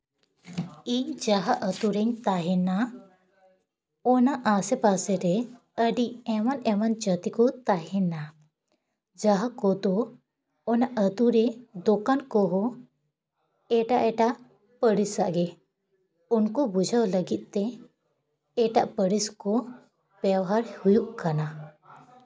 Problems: background sounds at intervals